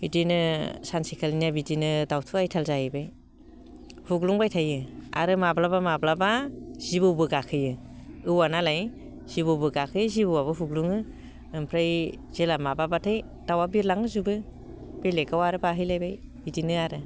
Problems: low volume